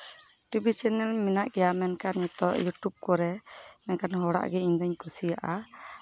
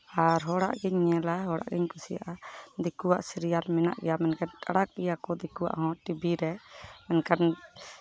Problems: none marked